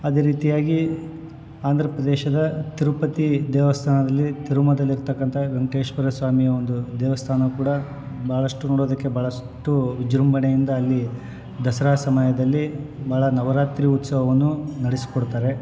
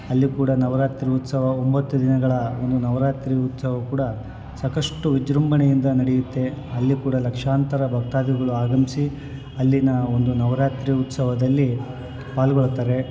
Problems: background sounds at intervals